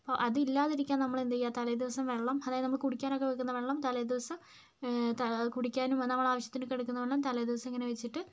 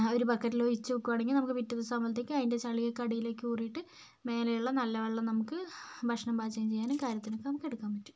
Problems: none marked